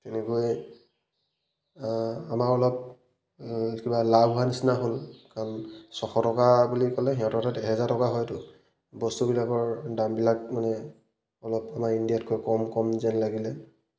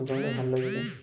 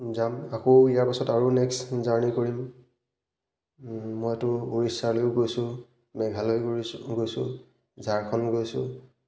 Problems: none marked